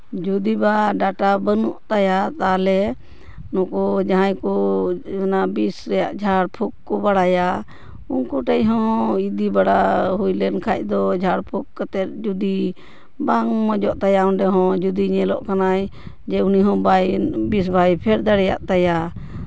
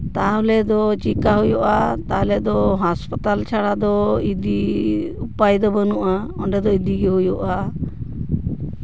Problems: background sounds at intervals